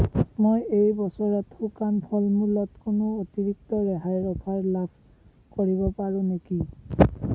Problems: constant background noise